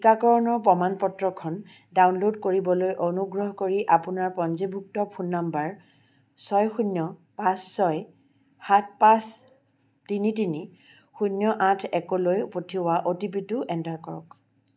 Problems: constant background noise